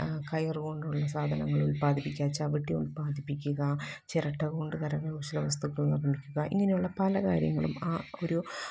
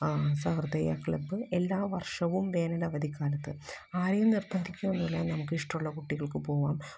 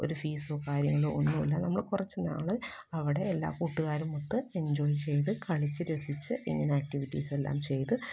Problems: background sounds at intervals, low volume